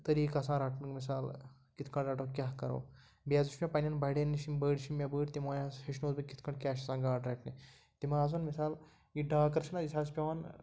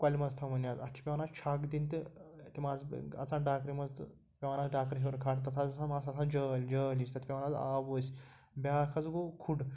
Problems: none marked